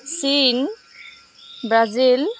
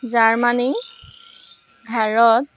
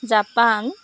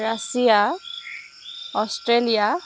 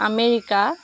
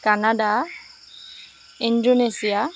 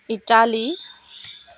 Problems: none marked